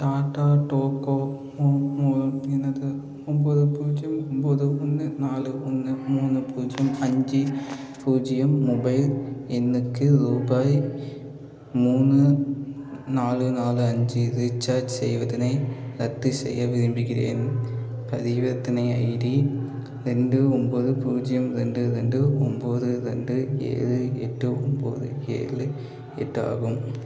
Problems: none marked